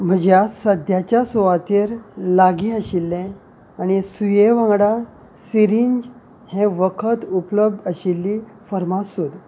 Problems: none marked